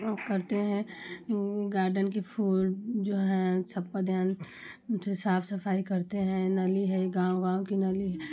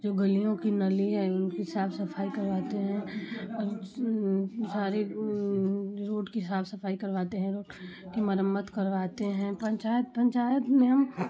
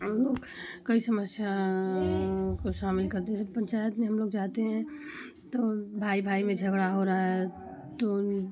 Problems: none marked